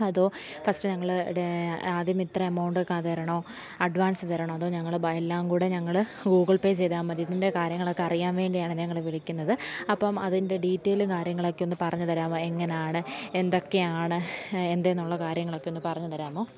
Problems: low volume